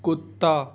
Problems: none marked